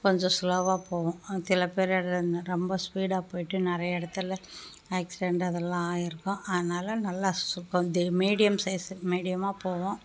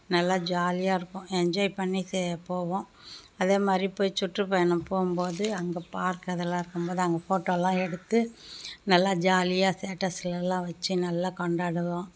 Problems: background sounds at intervals